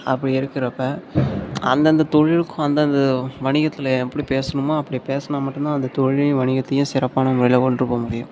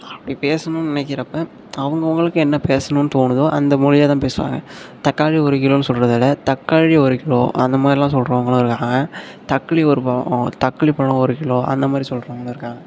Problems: constant background noise